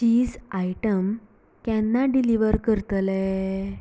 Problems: background sounds at intervals